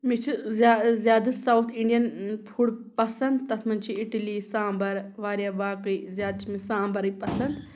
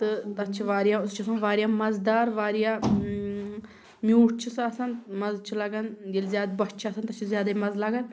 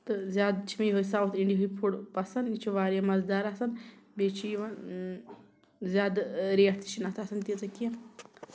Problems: background sounds at intervals